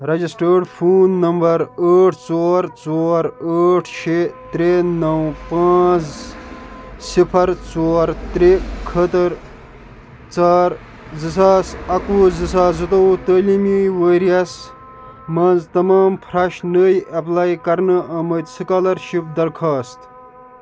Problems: background sounds at intervals, background conversations at intervals